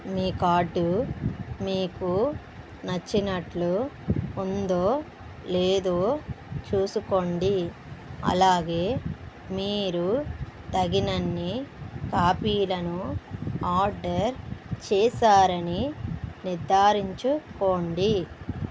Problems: background sounds at intervals